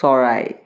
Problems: constant background noise